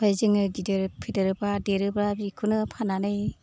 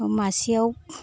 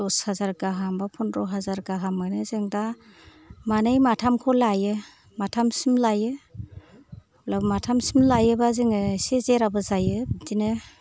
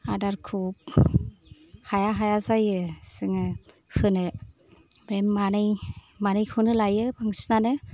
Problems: background sounds at intervals